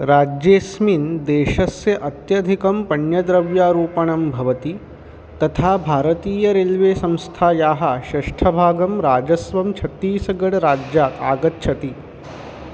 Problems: constant background noise